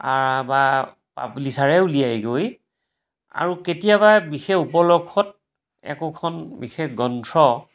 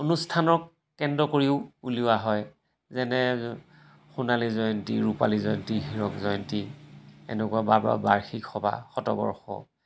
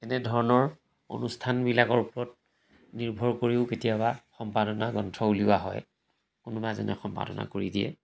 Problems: background sounds at intervals